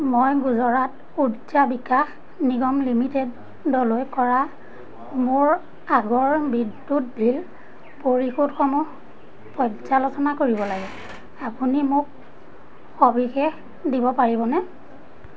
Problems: constant background noise, background conversations at intervals